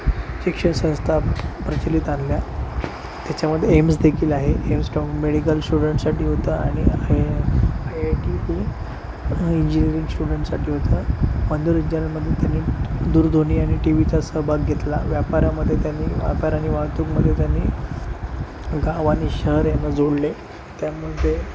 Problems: constant background noise